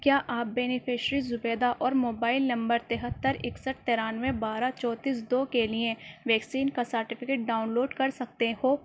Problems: none marked